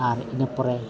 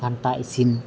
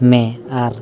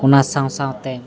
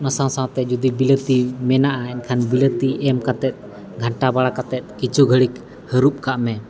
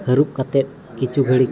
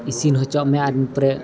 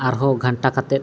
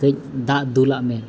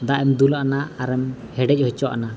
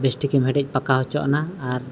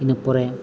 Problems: none marked